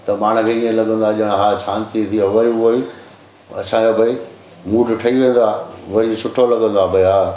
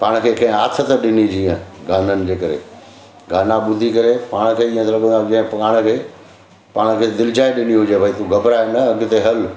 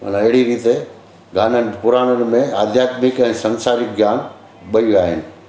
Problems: constant background noise, echo